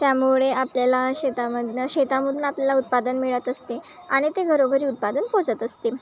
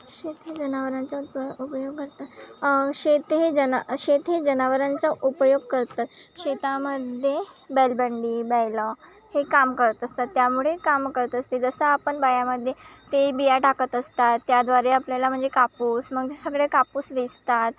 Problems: constant background noise